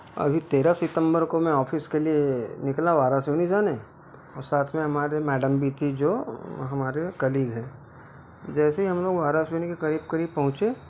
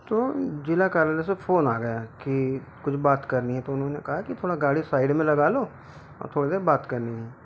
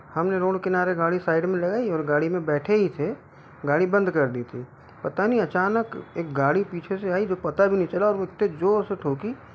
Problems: constant background noise